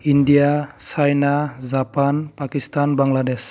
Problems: none marked